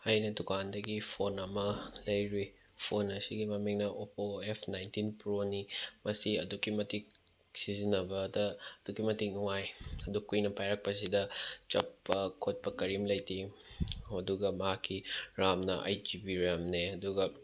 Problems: background sounds at intervals